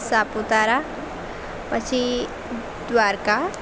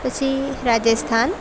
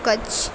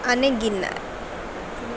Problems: constant background noise